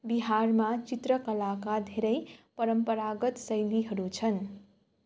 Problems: none marked